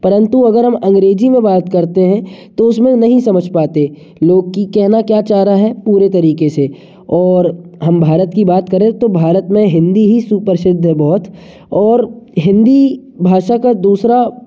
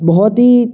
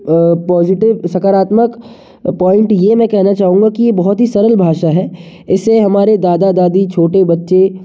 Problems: background sounds at intervals, echo